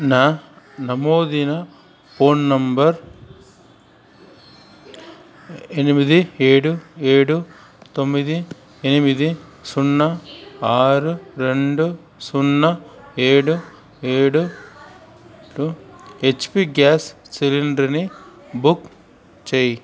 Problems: constant background noise, continuous background conversations